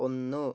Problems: none marked